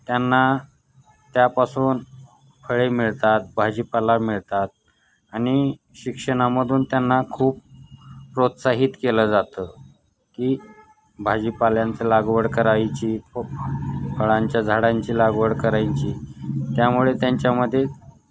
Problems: none marked